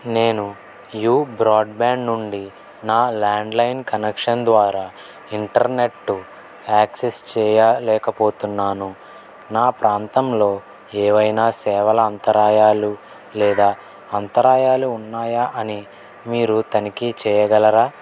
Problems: none marked